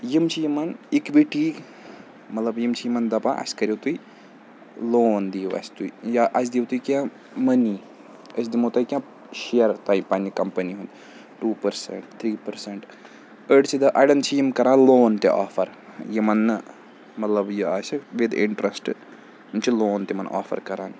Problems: none marked